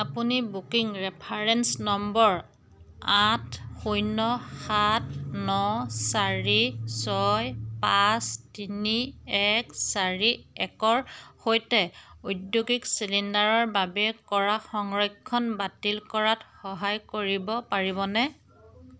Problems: none marked